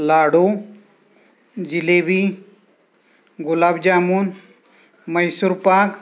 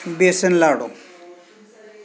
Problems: constant background noise, background conversations at intervals